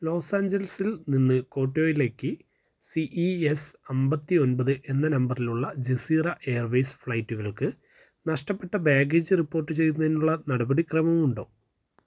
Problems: none marked